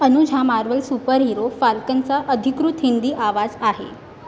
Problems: none marked